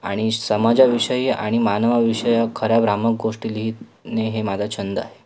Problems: background sounds at intervals